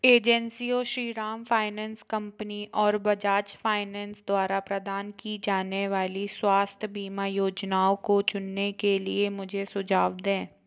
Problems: background sounds at intervals